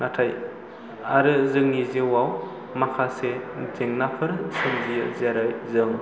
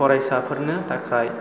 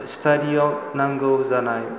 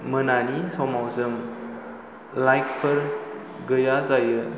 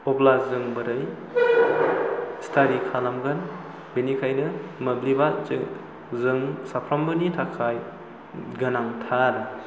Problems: low volume